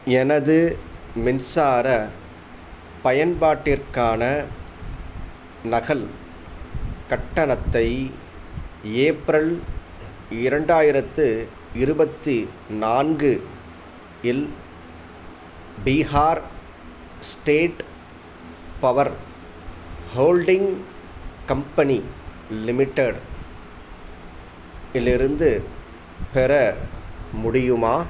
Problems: none marked